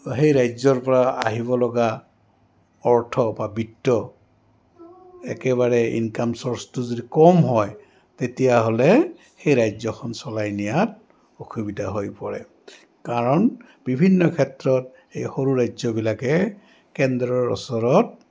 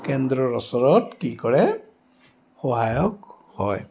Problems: background sounds at intervals, background conversations at intervals